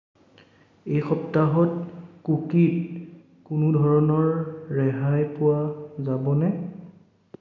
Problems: echo